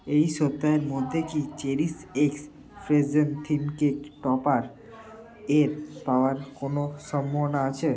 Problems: none marked